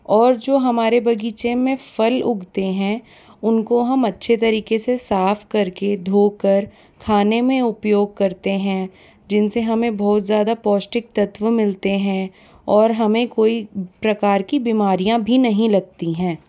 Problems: background sounds at intervals